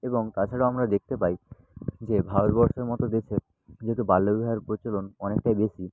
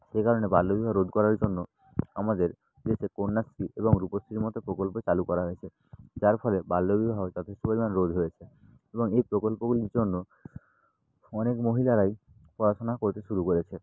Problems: none marked